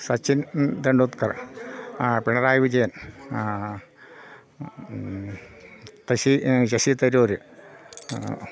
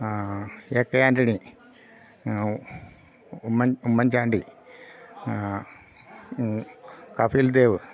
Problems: none marked